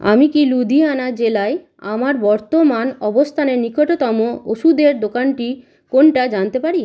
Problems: constant background noise